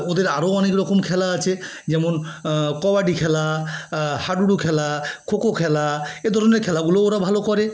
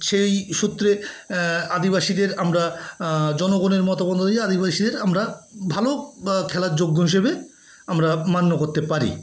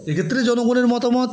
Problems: background sounds at intervals, background conversations at intervals